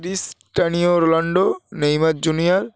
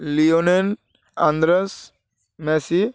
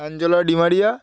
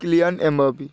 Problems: background sounds at intervals